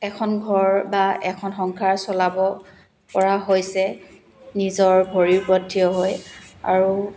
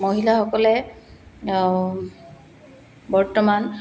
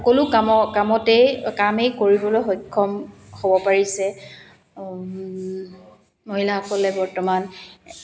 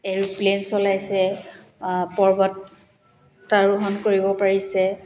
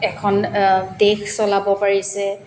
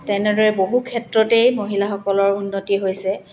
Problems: background sounds at intervals, continuous background conversations